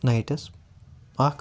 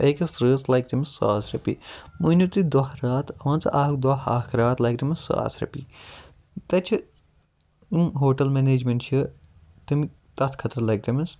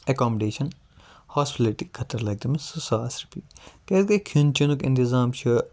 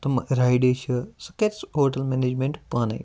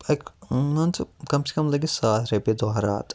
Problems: none marked